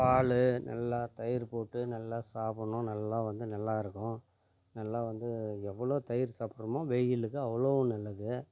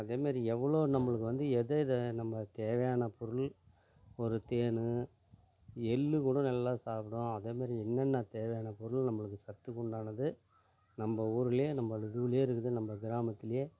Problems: none marked